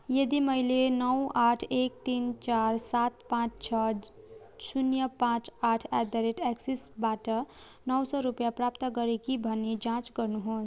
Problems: background conversations at intervals